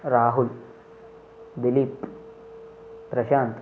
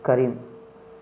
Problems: none marked